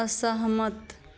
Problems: none marked